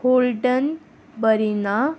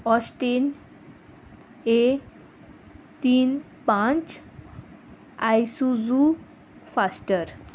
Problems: constant background noise